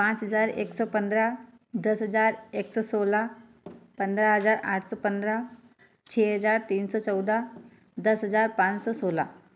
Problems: background sounds at intervals, echo